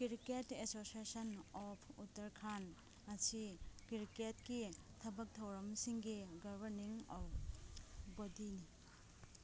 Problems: background sounds at intervals, low volume